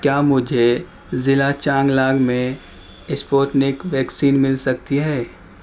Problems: constant background noise